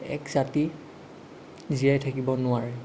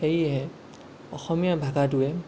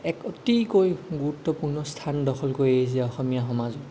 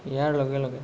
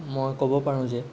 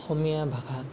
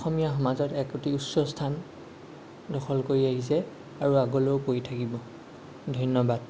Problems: none marked